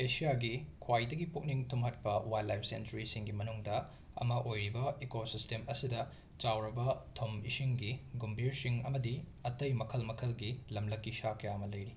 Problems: none marked